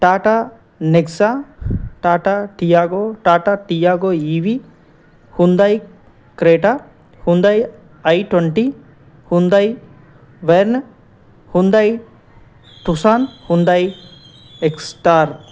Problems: none marked